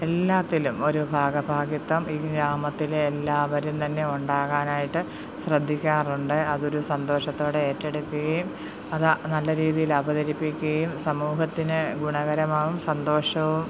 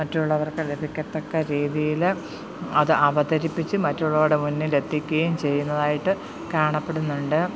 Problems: background sounds at intervals